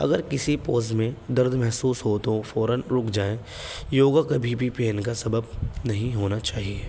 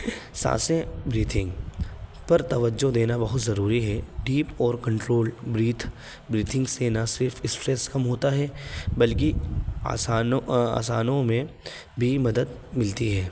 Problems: constant background noise